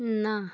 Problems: none marked